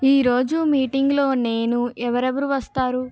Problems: none marked